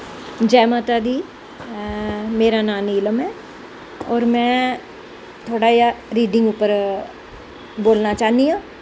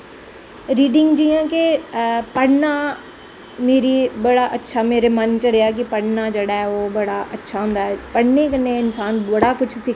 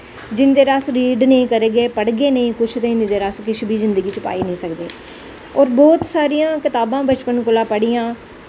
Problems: constant background noise